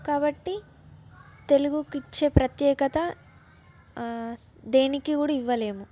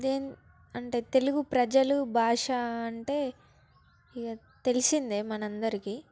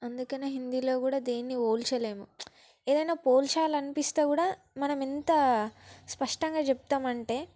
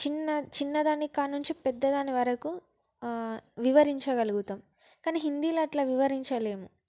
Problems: background sounds at intervals, background conversations at intervals